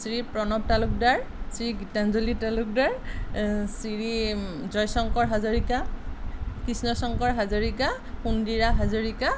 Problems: constant background noise